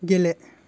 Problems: constant background noise